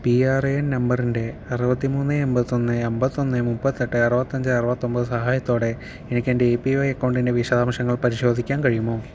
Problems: none marked